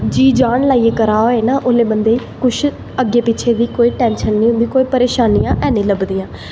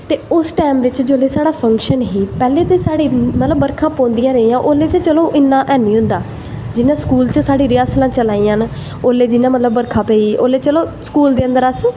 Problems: echo